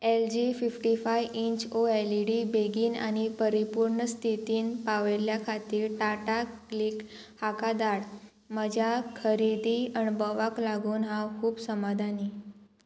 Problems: constant background noise